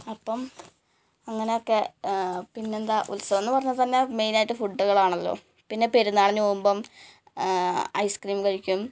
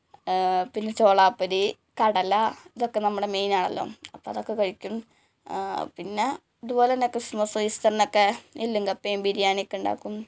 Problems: background sounds at intervals